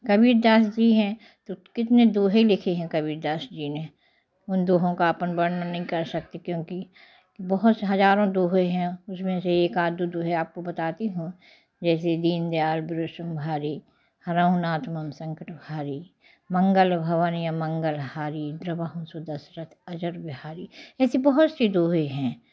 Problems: none marked